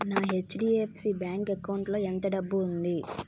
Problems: background sounds at intervals